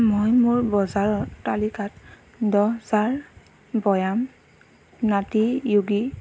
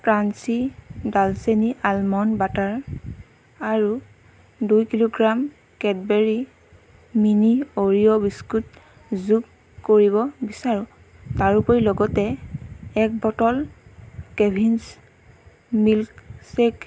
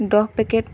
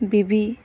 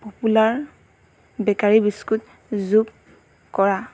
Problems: constant background noise